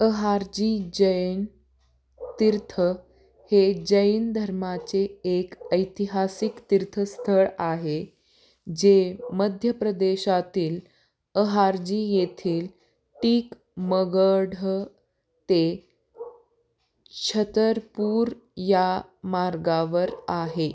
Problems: constant background noise